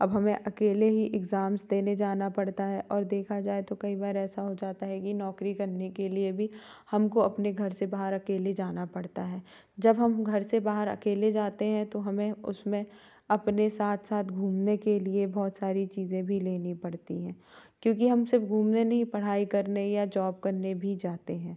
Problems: none marked